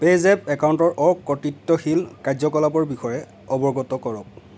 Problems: none marked